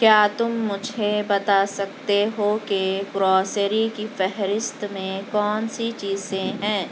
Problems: constant background noise